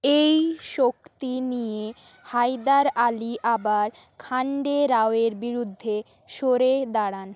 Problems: constant background noise